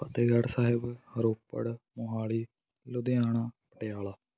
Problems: background conversations at intervals